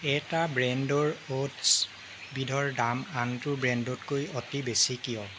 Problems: constant background noise